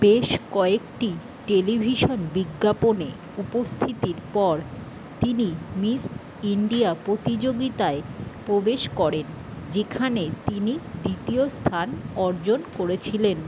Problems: constant background noise